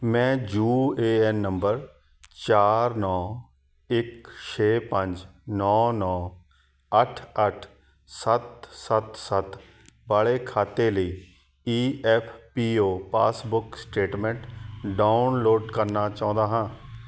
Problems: background sounds at intervals